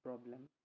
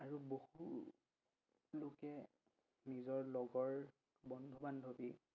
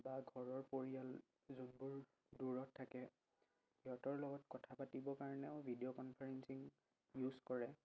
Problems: low volume